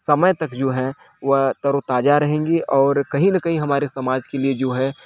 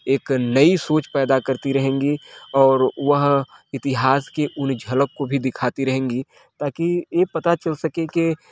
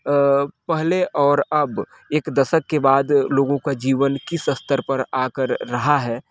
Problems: constant background noise, background conversations at intervals